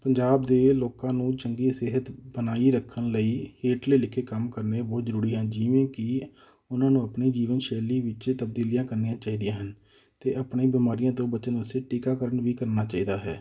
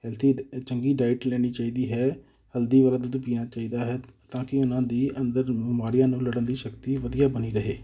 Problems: background sounds at intervals